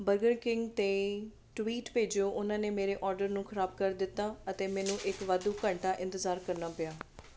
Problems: none marked